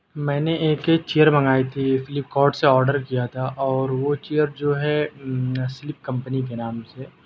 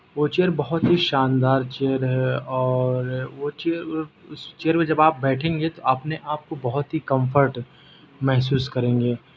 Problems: constant background noise